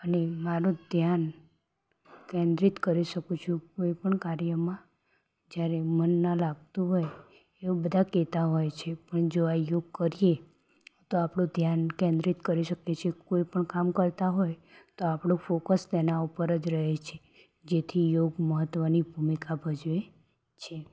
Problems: background sounds at intervals